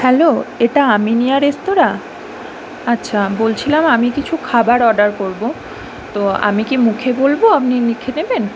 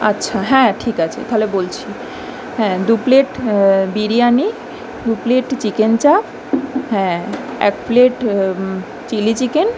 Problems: background sounds at intervals